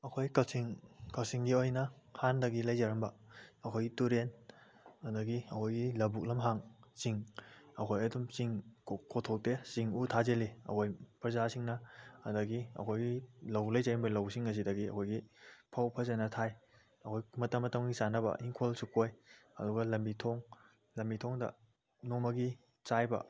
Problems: none marked